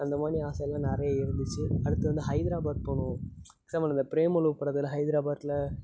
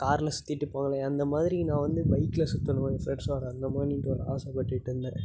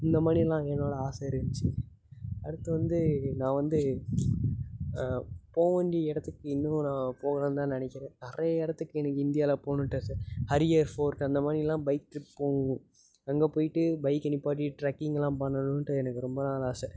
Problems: constant background noise